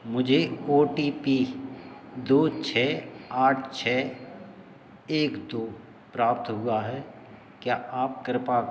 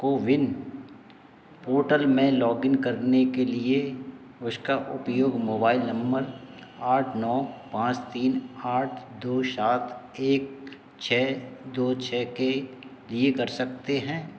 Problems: background sounds at intervals